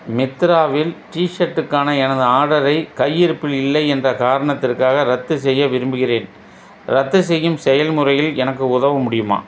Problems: none marked